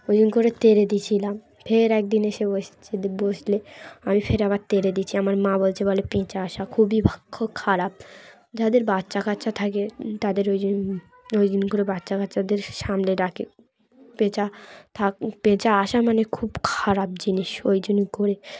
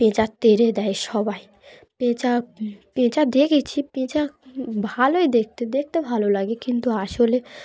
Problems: continuous background conversations